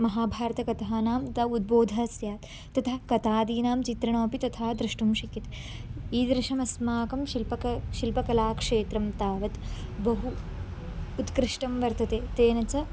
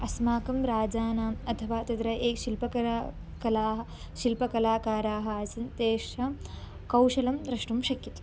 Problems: background sounds at intervals, background conversations at intervals